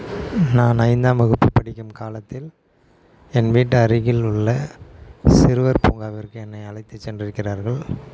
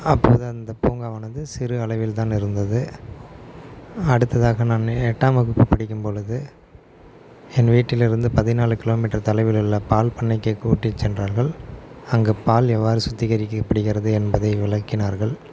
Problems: background sounds at intervals